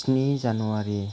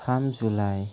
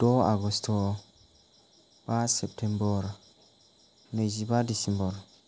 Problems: none marked